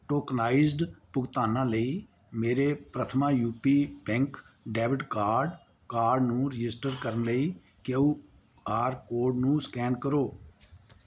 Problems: none marked